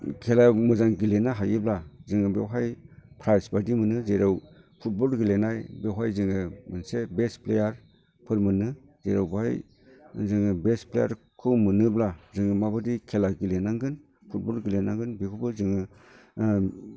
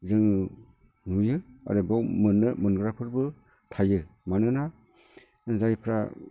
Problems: constant background noise